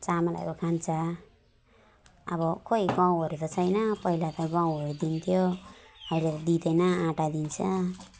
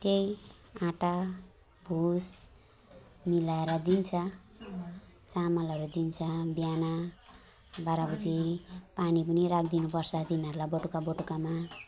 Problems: constant background noise, continuous background conversations